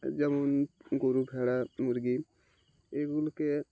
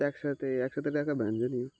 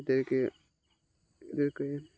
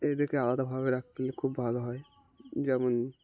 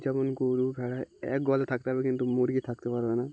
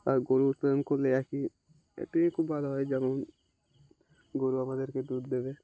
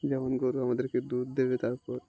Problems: constant background noise